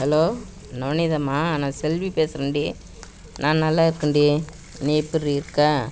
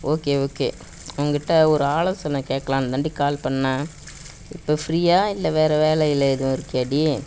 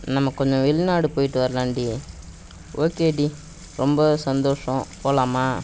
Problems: background sounds at intervals